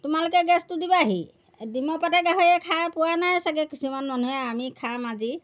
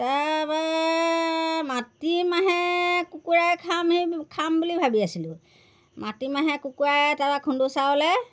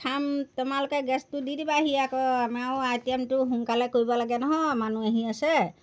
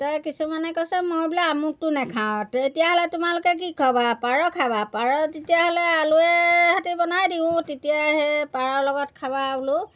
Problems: background sounds at intervals